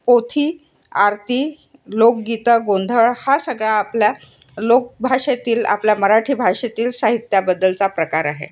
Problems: constant background noise